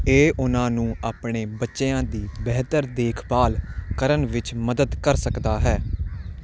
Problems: none marked